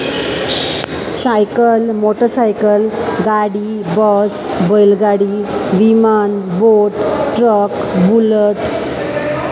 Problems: constant background noise